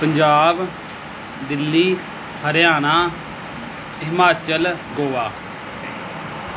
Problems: background sounds at intervals